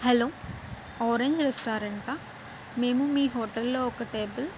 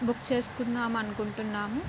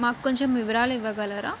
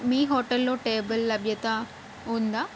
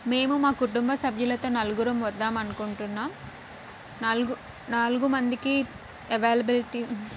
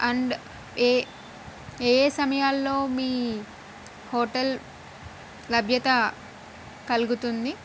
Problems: constant background noise